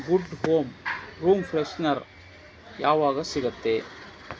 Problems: constant background noise